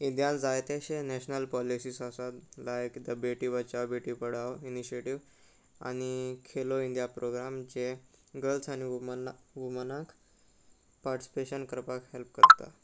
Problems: constant background noise